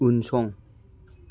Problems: none marked